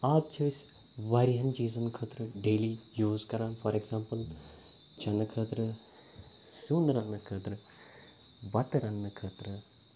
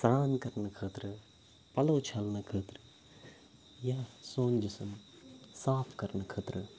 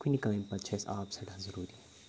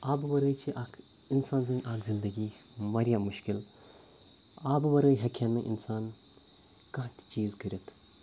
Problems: background sounds at intervals